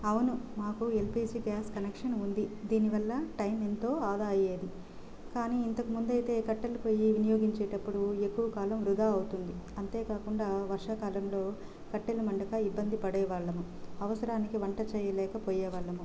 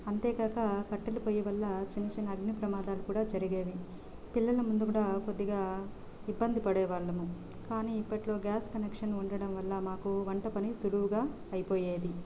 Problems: constant background noise, low volume